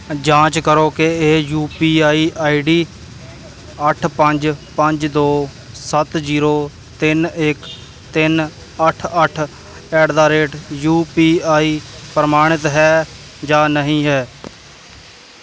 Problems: constant background noise